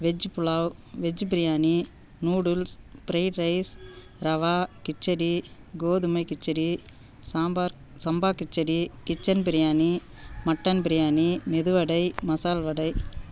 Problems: background sounds at intervals